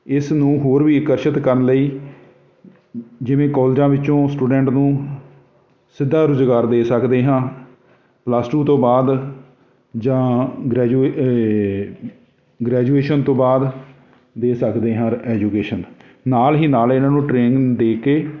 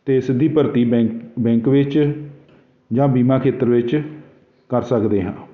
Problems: constant background noise